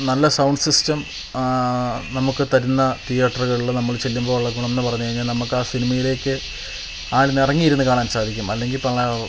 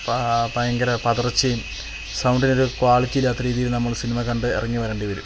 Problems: constant background noise, low volume